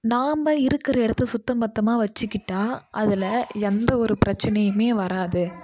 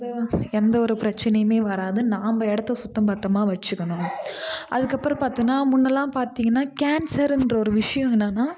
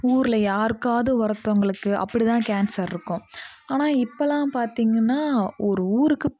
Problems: constant background noise